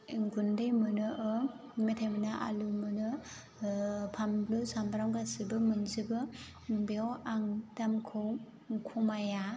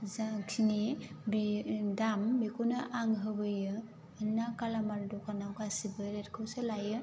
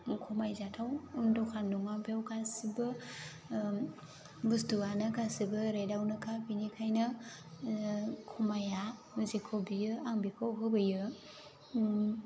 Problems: low volume